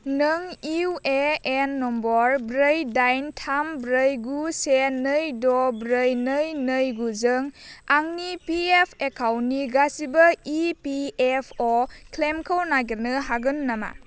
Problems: low volume